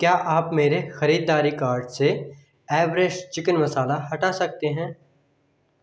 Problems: echo